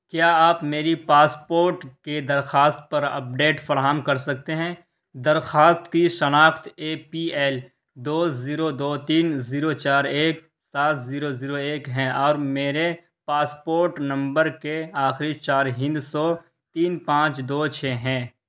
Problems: none marked